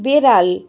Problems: constant background noise